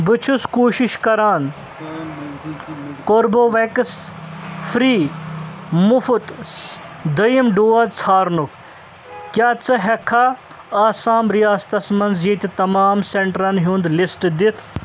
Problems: constant background noise